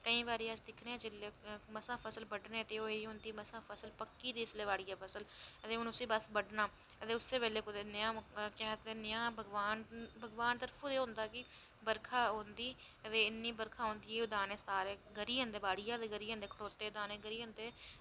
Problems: low volume